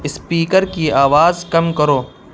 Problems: constant background noise